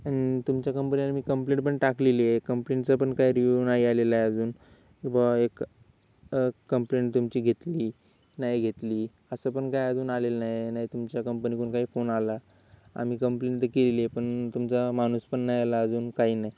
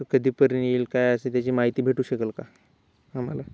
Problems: background sounds at intervals